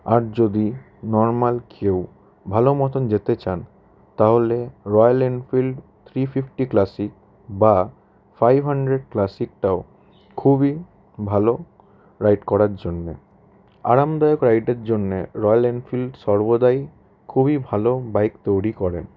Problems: constant background noise